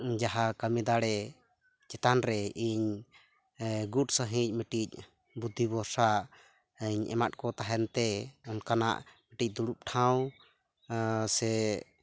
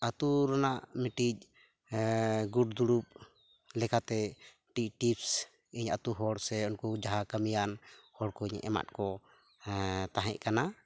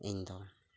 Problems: background sounds at intervals